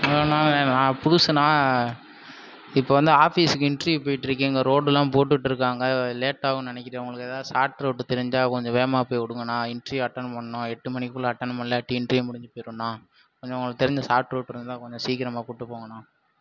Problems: background sounds at intervals